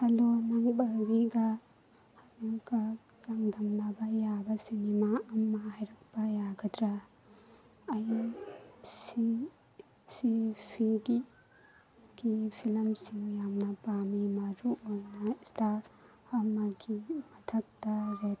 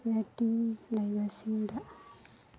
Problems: constant background noise